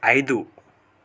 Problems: none marked